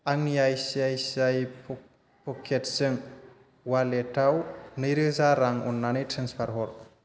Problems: constant background noise